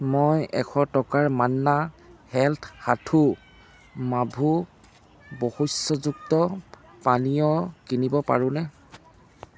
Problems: constant background noise